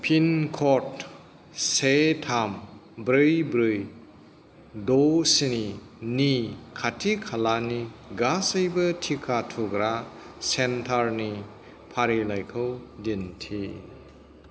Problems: none marked